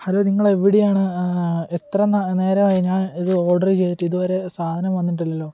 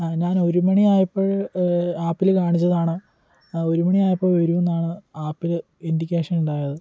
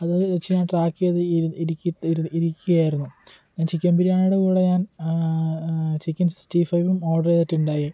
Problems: none marked